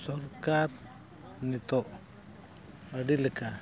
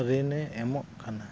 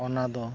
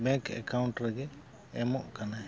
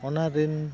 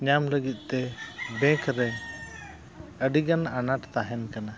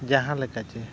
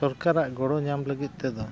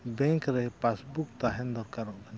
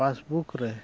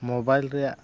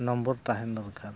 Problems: none marked